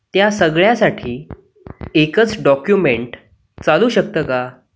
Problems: none marked